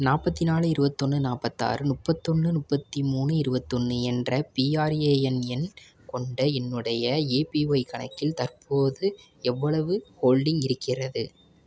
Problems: none marked